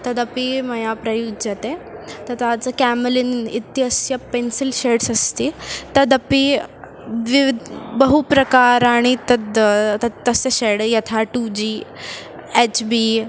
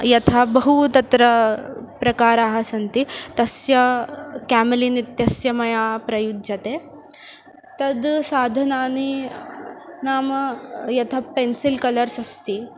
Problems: constant background noise